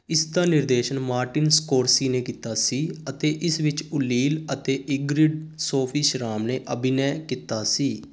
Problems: constant background noise